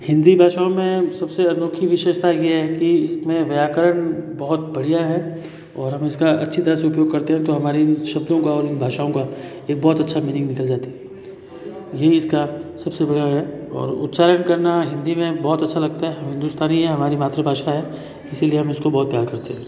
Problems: constant background noise, continuous background conversations